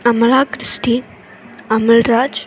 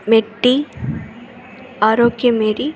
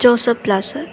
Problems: constant background noise